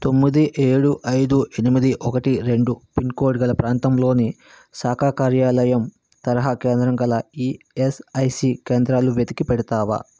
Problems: constant background noise